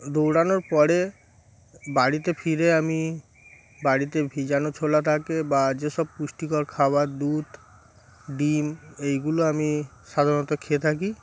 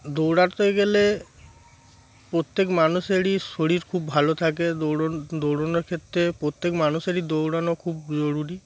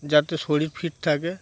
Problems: background sounds at intervals